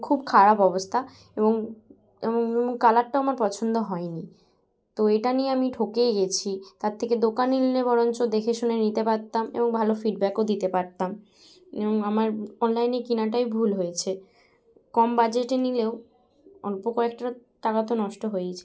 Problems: background sounds at intervals, background conversations at intervals